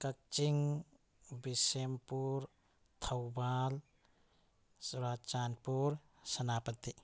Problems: none marked